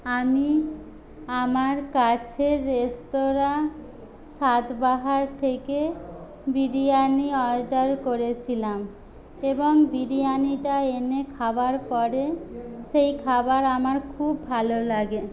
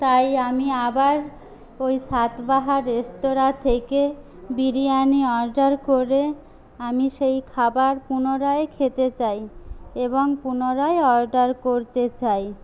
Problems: none marked